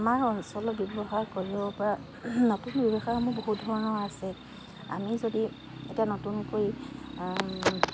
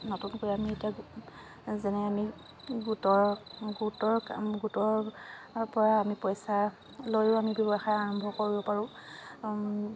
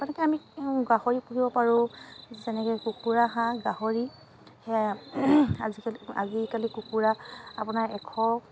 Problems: constant background noise, continuous background conversations